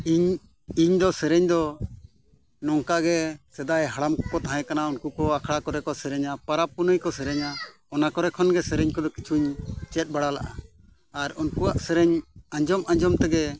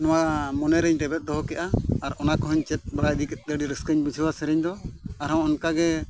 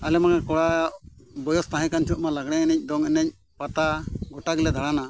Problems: background sounds at intervals